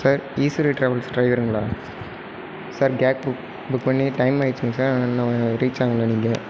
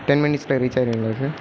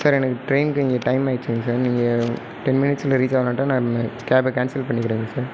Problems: background sounds at intervals